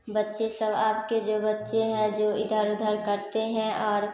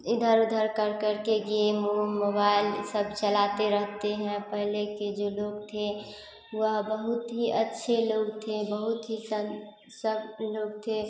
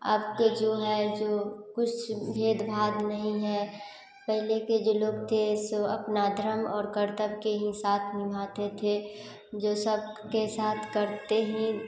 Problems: constant background noise